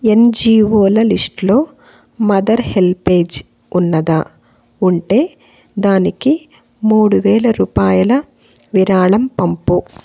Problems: constant background noise